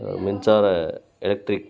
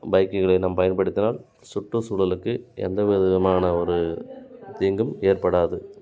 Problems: continuous background conversations